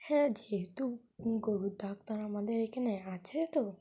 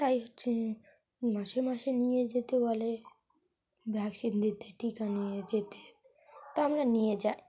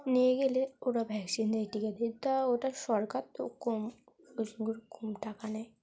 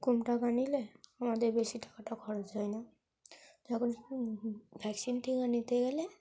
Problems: constant background noise, background conversations at intervals